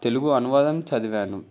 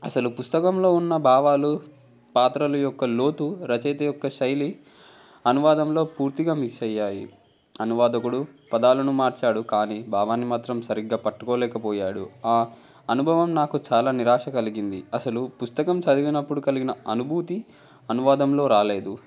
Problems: background conversations at intervals